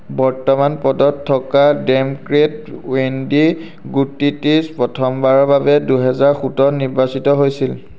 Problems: none marked